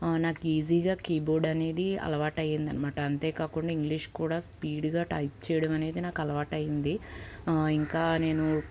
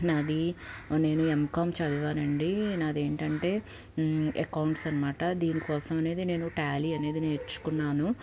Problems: none marked